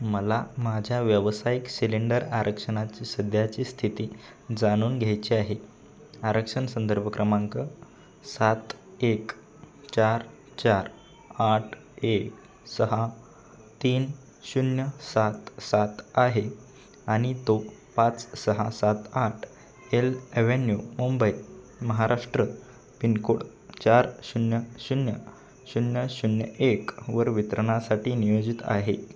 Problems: none marked